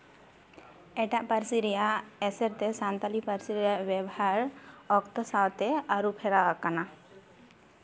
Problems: constant background noise, background conversations at intervals